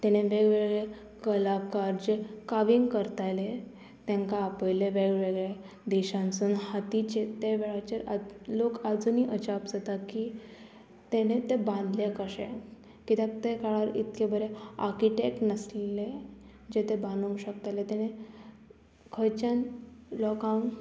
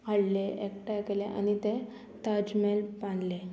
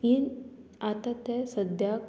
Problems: constant background noise